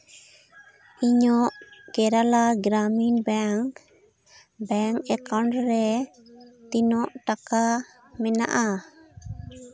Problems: continuous background conversations